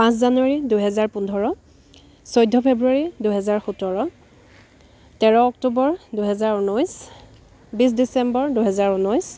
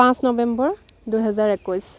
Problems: background sounds at intervals